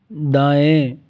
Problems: none marked